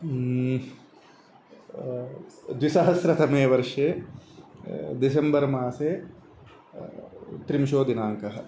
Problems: constant background noise